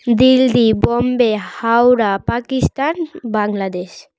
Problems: none marked